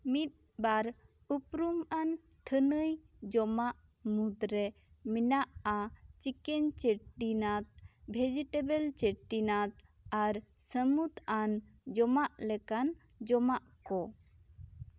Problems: none marked